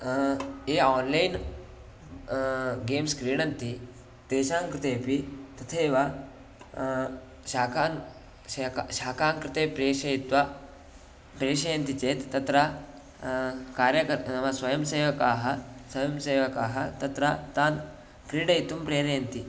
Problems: background sounds at intervals